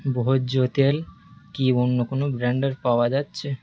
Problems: constant background noise